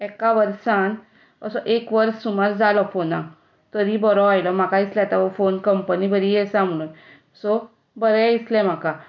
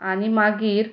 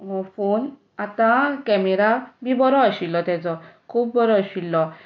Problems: none marked